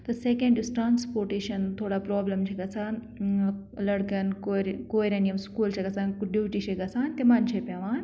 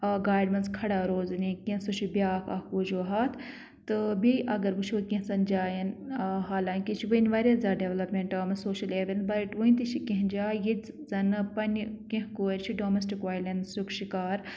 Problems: none marked